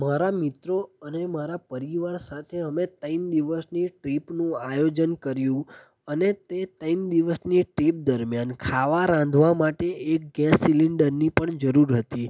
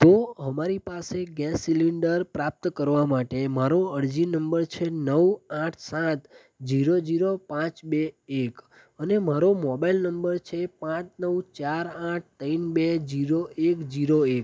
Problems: none marked